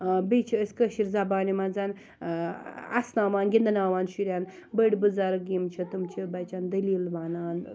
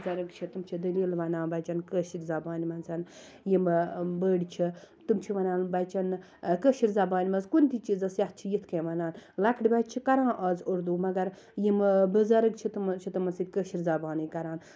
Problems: low volume